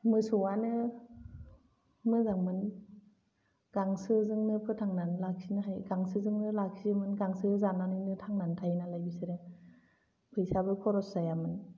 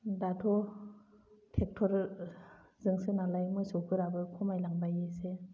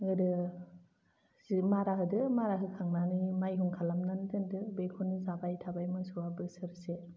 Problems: low volume